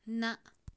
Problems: none marked